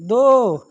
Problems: constant background noise